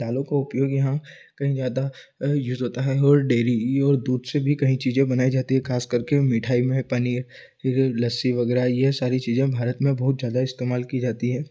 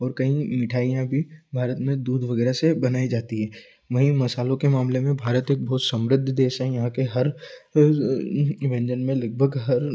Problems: constant background noise